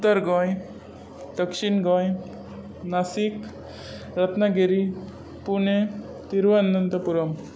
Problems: constant background noise